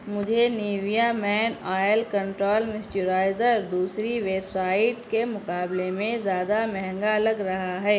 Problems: none marked